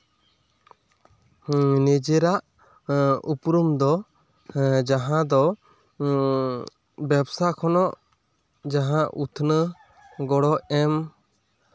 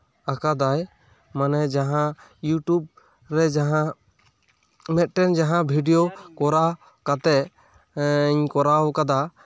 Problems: none marked